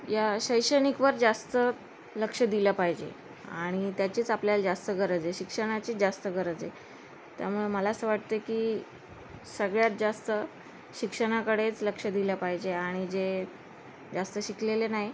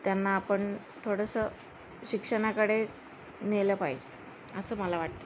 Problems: constant background noise